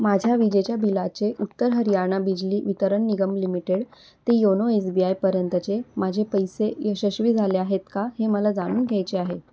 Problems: constant background noise